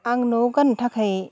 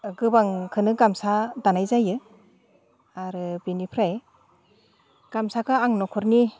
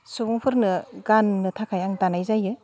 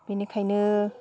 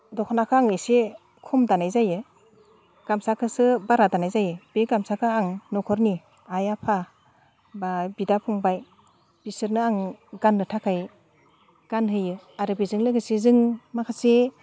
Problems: none marked